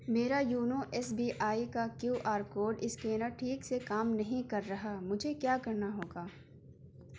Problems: background sounds at intervals